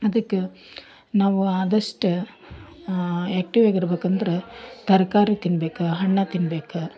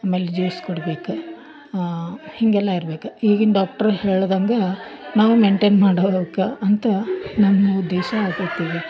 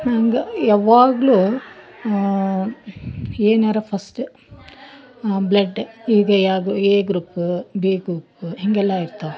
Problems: background sounds at intervals, background conversations at intervals